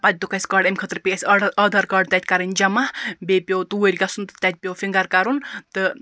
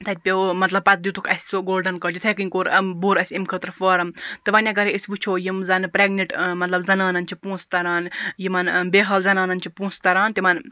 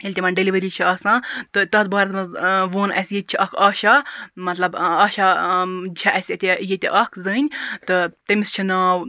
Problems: background sounds at intervals